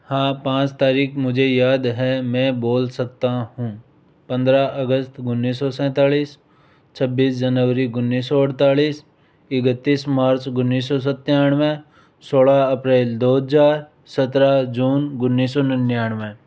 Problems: background sounds at intervals